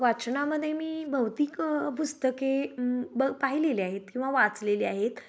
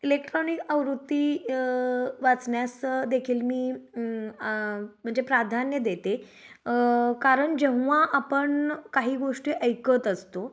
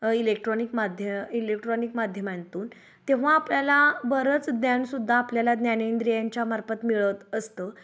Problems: none marked